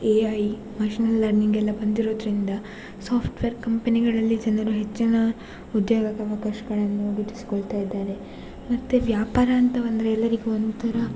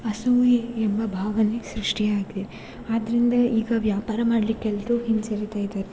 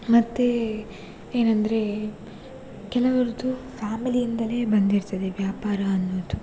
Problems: background sounds at intervals